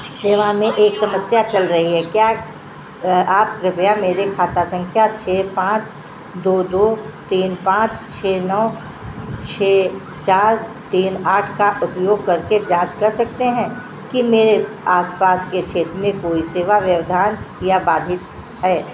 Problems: constant background noise